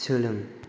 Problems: none marked